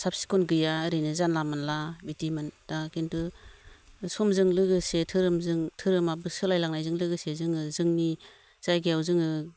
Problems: low volume